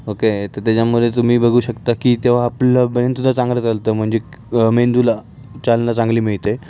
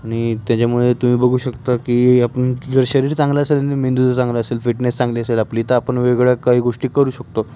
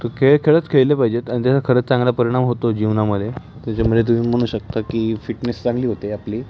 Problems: constant background noise, continuous background conversations